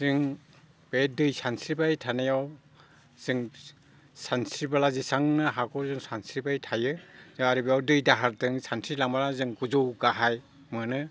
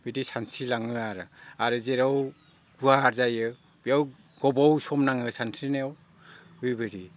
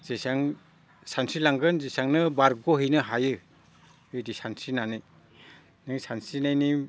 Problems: none marked